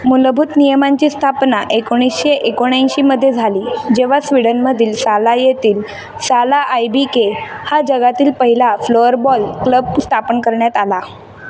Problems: constant background noise, background conversations at intervals